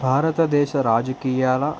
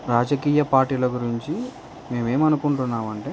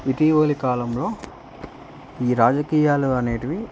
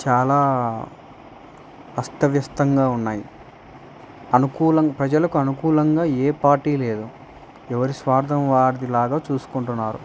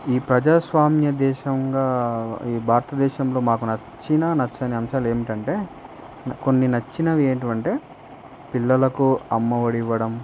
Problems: constant background noise